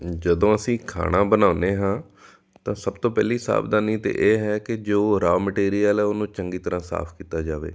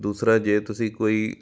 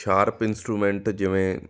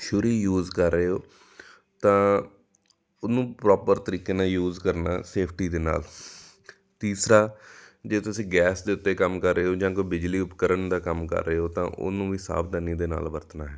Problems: background sounds at intervals